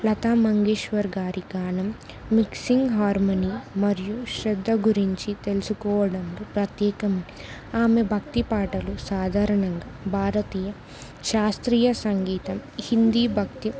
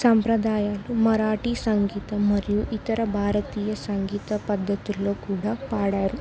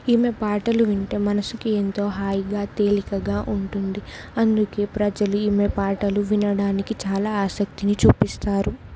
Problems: none marked